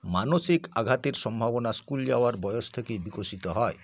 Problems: none marked